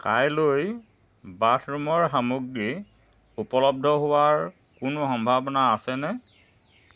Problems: constant background noise